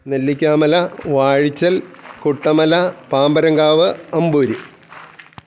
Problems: none marked